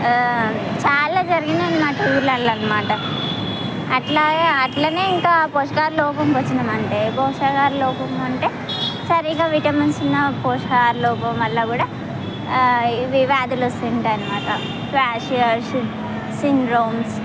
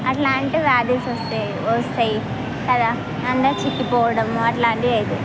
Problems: constant background noise